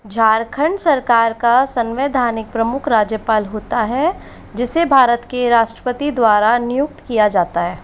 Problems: none marked